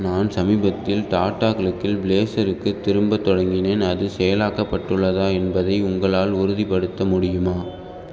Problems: none marked